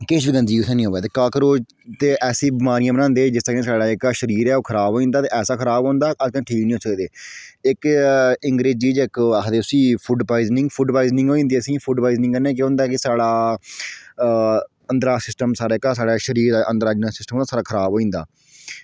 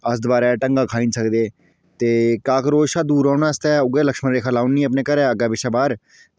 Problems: none marked